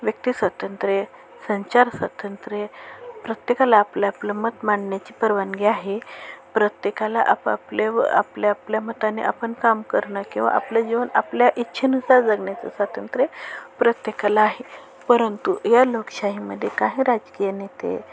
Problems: constant background noise, continuous background conversations